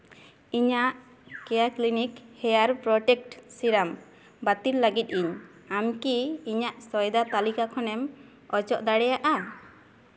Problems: none marked